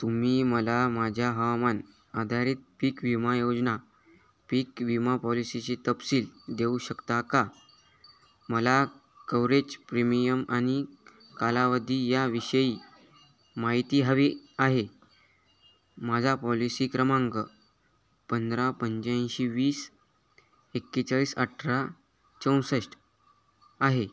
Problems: none marked